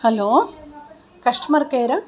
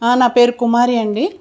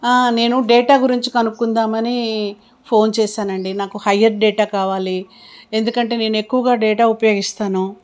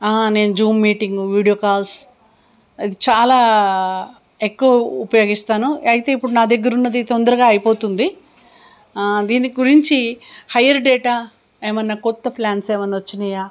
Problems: none marked